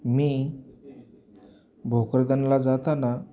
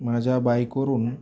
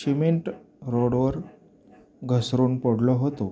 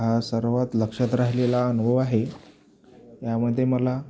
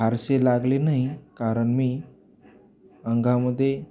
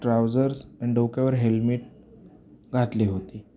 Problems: none marked